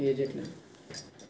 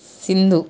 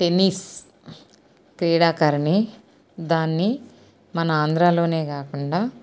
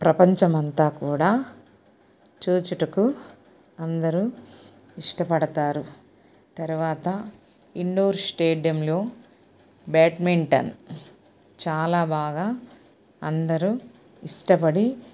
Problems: none marked